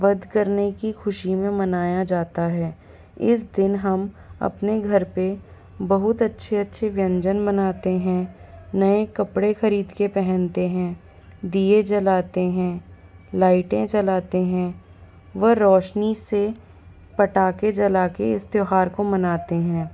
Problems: background sounds at intervals